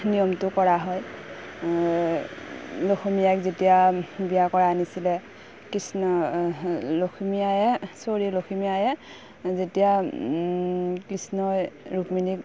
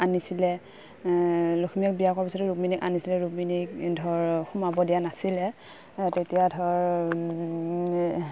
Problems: none marked